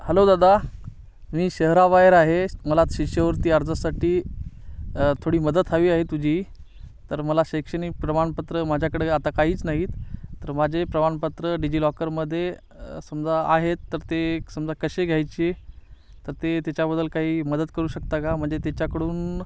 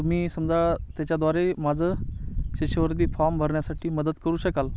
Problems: none marked